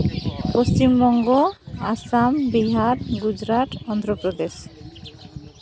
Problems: constant background noise, background conversations at intervals